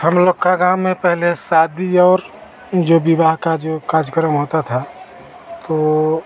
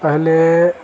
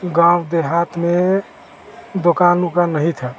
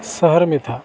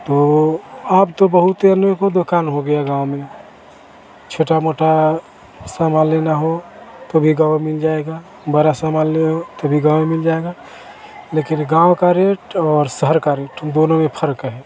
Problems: none marked